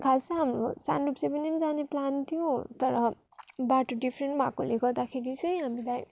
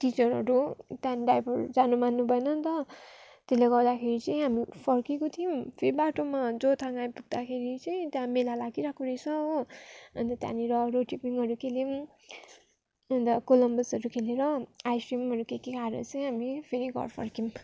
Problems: background sounds at intervals